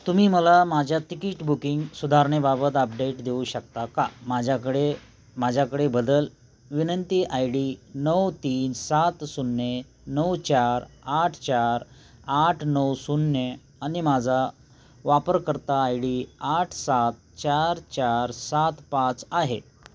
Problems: none marked